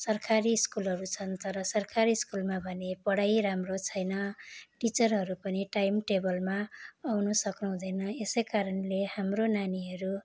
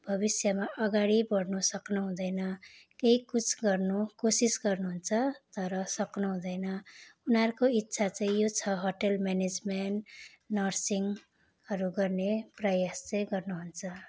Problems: constant background noise